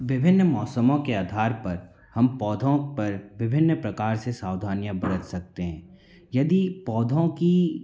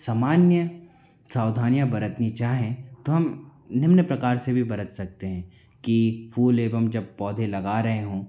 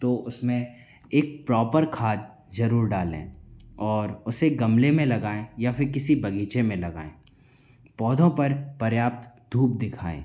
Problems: background conversations at intervals